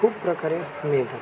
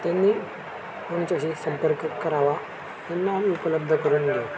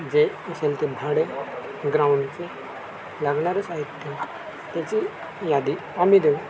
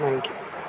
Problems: constant background noise, continuous background conversations